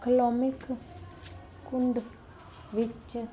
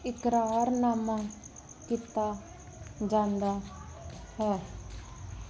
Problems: constant background noise